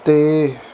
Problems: constant background noise